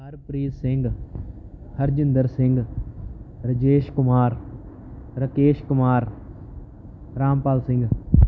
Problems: none marked